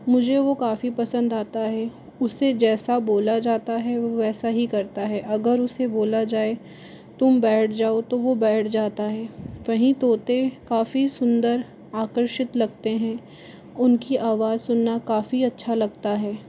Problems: none marked